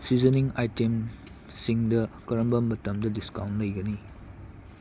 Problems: none marked